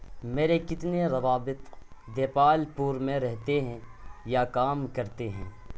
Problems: constant background noise